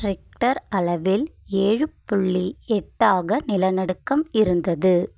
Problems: none marked